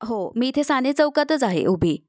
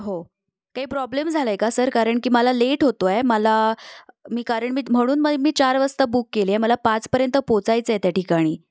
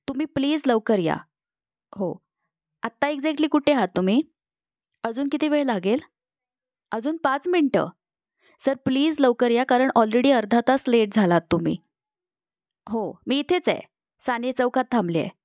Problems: none marked